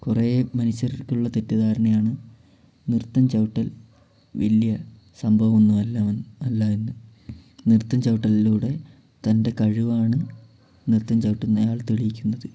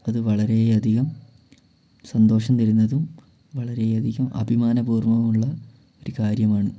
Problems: none marked